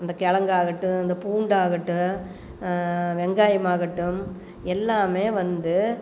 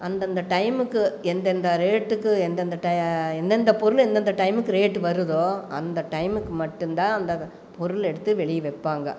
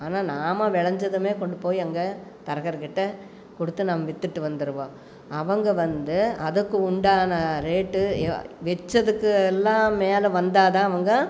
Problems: none marked